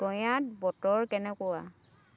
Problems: constant background noise, continuous background conversations